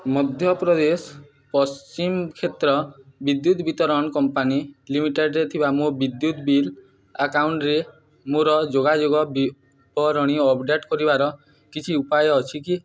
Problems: background conversations at intervals